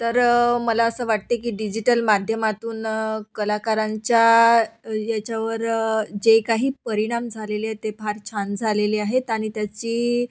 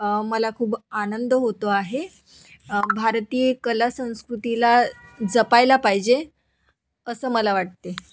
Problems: none marked